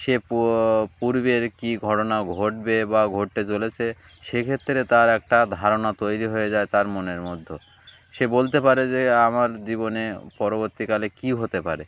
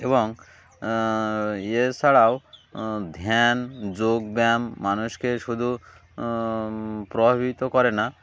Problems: none marked